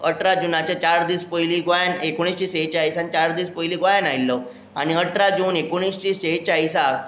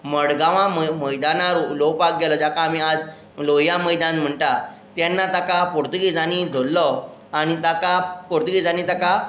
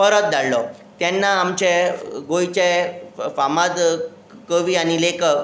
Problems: none marked